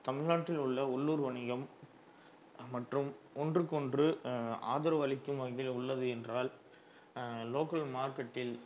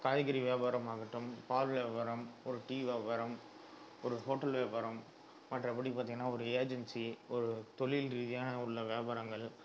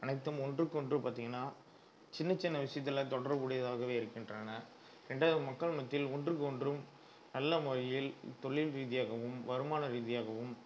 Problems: low volume